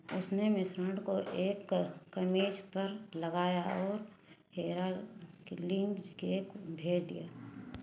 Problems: background sounds at intervals